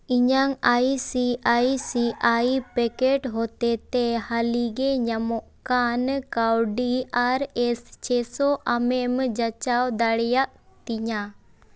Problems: none marked